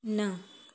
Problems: constant background noise, echo